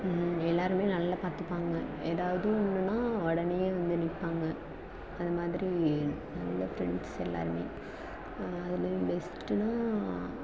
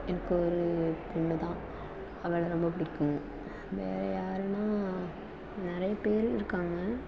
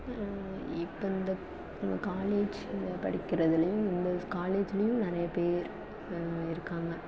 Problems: constant background noise, low volume